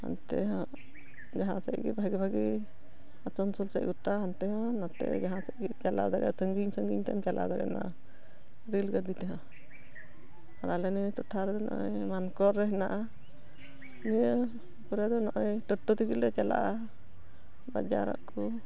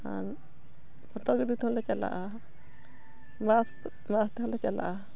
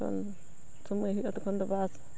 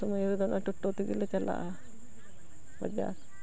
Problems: background sounds at intervals